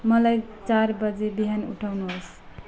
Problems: low volume